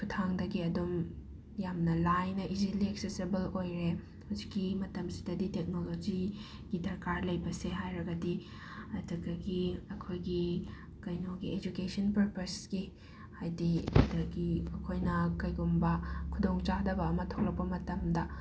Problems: constant background noise